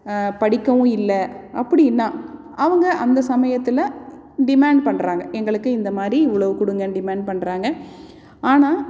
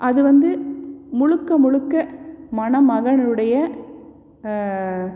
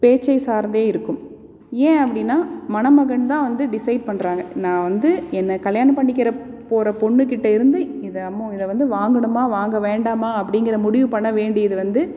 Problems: none marked